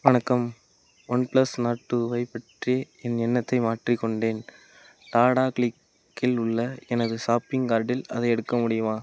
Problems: none marked